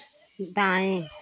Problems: none marked